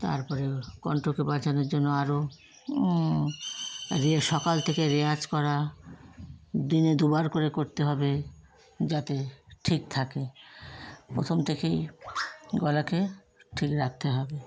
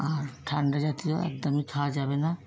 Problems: constant background noise, background conversations at intervals